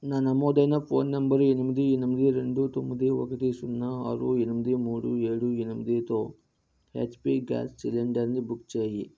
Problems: none marked